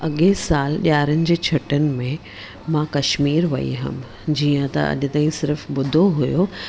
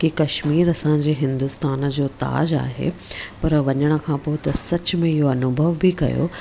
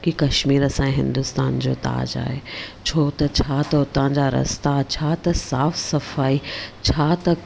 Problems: none marked